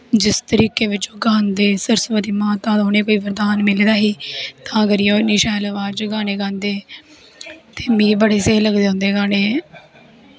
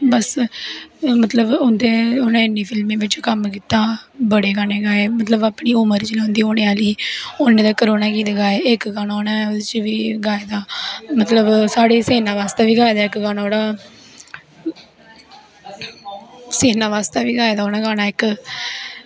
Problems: background sounds at intervals